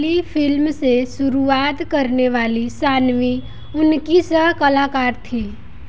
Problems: constant background noise